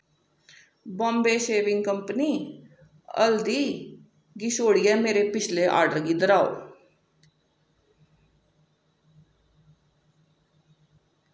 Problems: echo